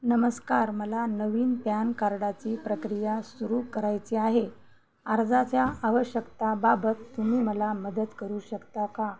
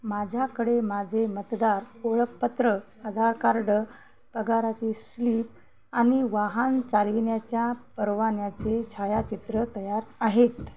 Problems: none marked